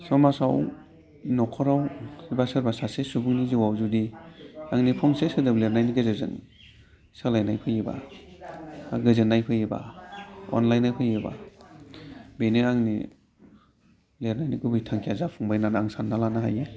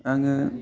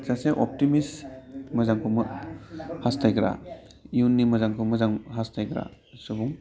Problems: constant background noise